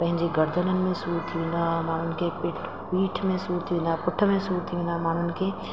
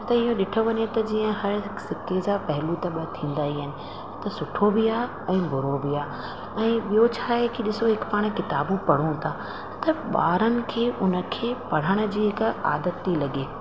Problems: constant background noise, echo